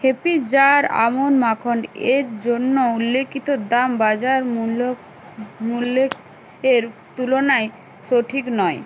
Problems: background sounds at intervals